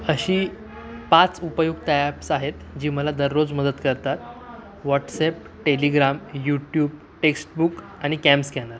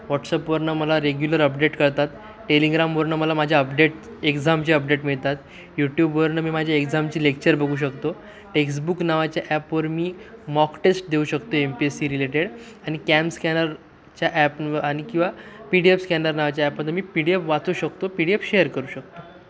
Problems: constant background noise, continuous background conversations